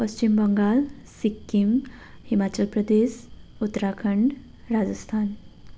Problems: background sounds at intervals